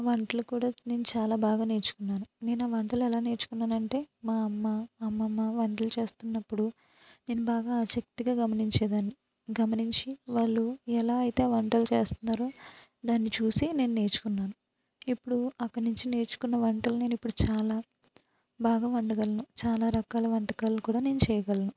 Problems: low volume